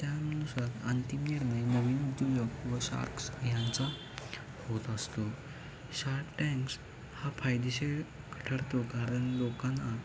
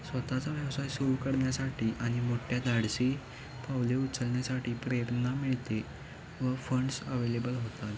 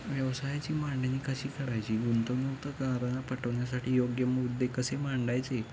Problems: constant background noise, continuous background conversations